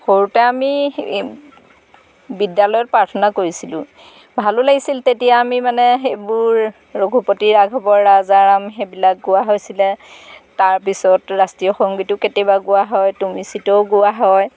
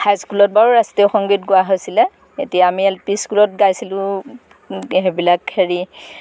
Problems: none marked